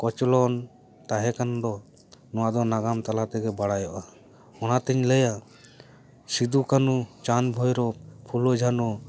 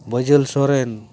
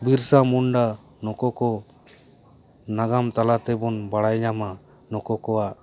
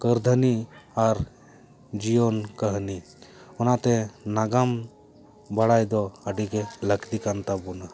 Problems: none marked